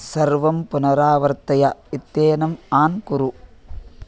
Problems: none marked